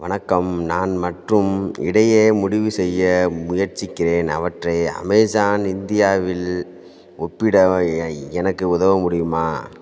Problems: background sounds at intervals